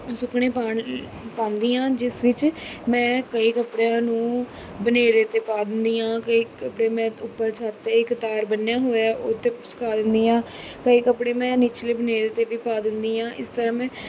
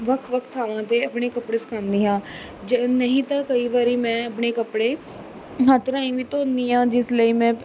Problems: background sounds at intervals